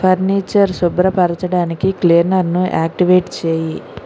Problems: constant background noise